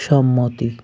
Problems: constant background noise